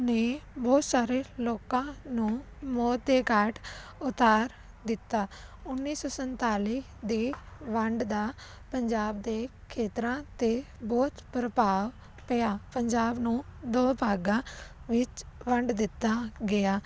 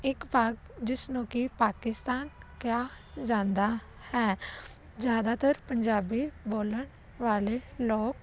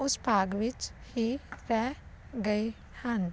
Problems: constant background noise